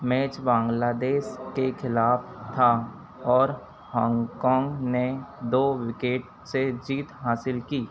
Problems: constant background noise